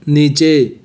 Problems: constant background noise